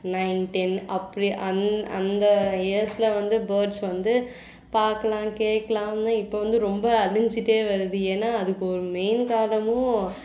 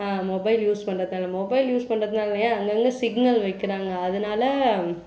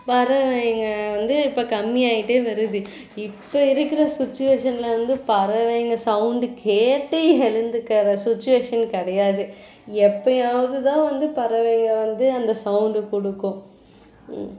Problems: background sounds at intervals